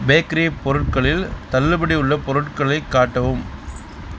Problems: constant background noise